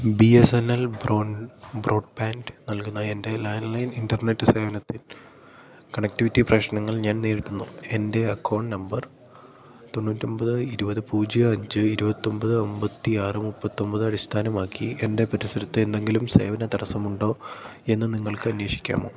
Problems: low volume